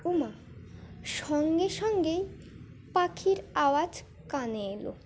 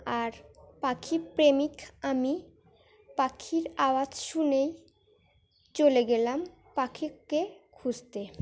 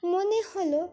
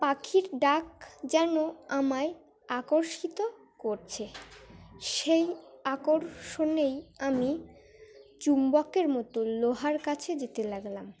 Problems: constant background noise, continuous background conversations